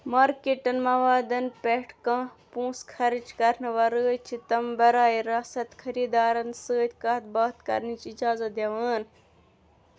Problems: background conversations at intervals